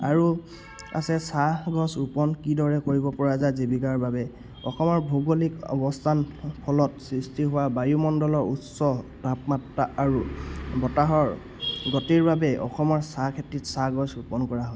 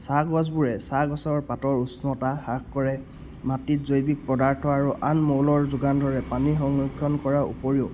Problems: background sounds at intervals